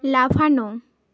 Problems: continuous background conversations